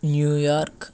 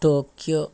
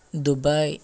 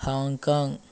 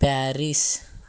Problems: background sounds at intervals